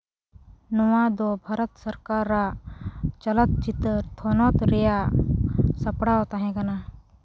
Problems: background sounds at intervals